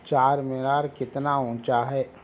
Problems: constant background noise